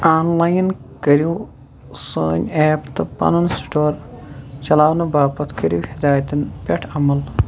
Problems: constant background noise, background conversations at intervals